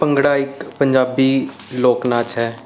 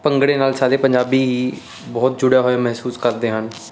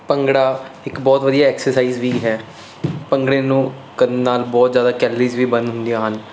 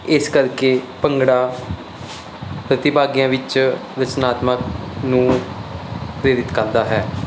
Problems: constant background noise